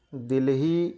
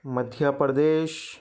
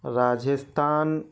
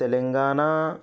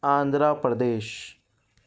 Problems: none marked